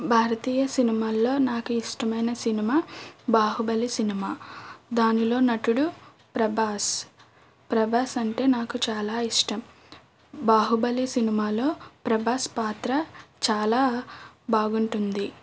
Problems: none marked